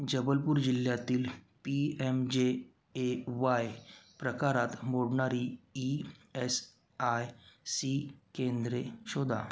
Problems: background sounds at intervals